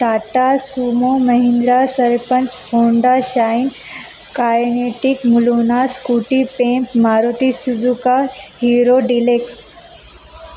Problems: constant background noise, background conversations at intervals